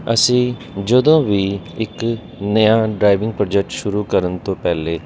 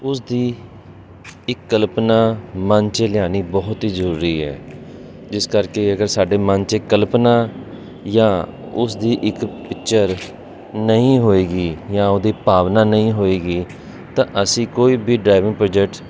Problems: constant background noise